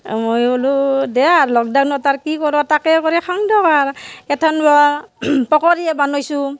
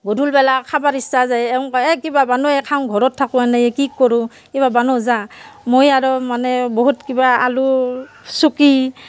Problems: background sounds at intervals, background conversations at intervals